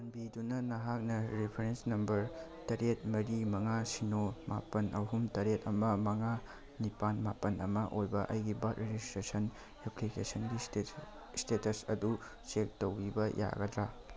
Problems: background sounds at intervals